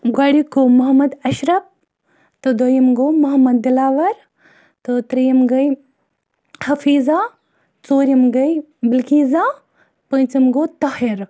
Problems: none marked